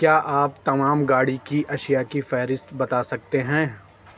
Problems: none marked